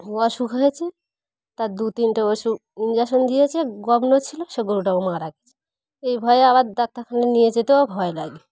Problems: none marked